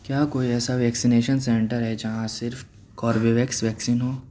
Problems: constant background noise